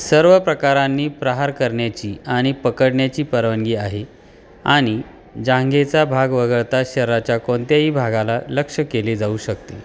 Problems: none marked